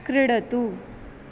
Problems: constant background noise